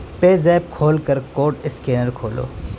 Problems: constant background noise